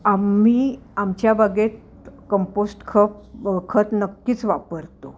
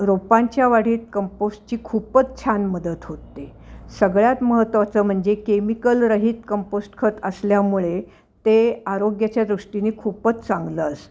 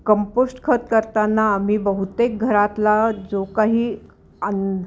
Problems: none marked